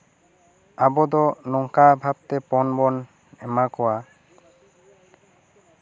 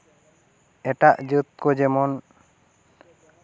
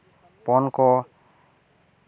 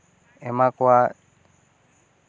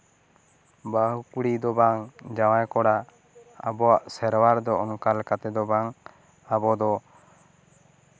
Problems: none marked